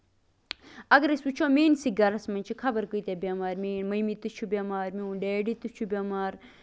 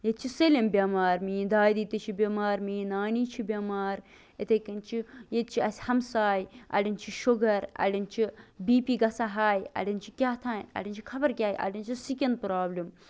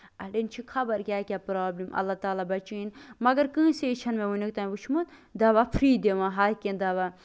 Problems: constant background noise